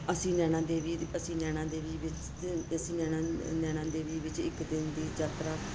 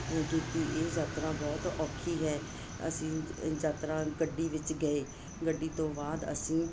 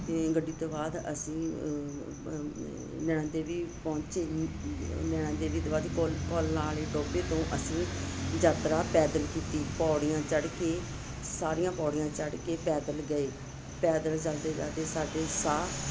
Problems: constant background noise